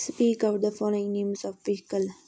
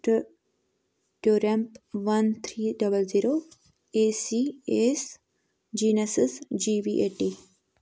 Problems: none marked